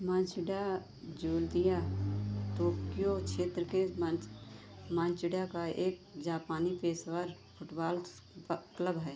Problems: constant background noise